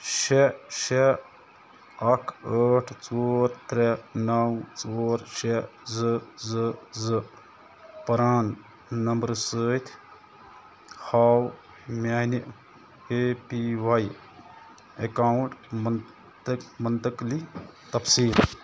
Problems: constant background noise